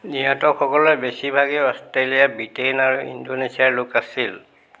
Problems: constant background noise